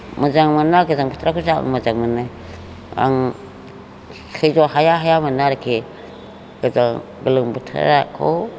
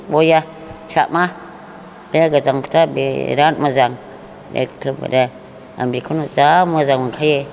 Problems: constant background noise